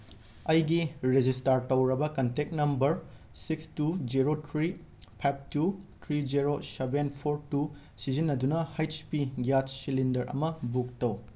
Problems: constant background noise